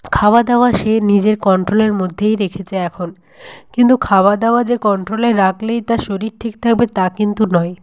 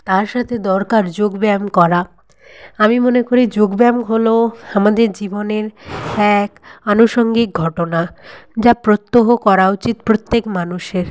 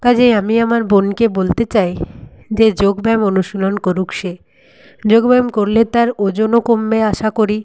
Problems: none marked